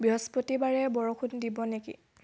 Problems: none marked